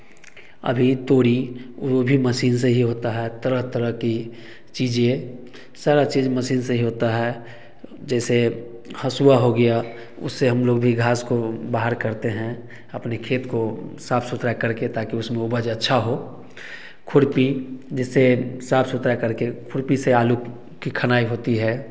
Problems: echo